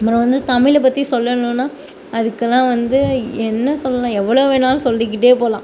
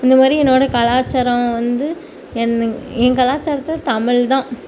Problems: none marked